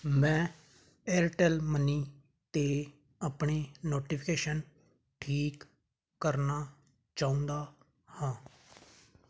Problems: constant background noise